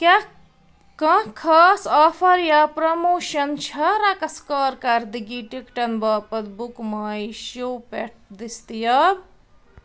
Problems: none marked